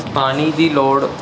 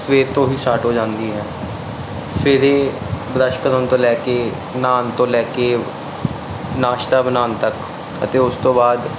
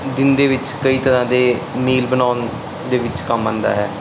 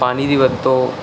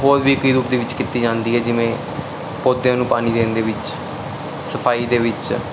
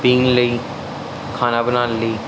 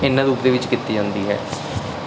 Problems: constant background noise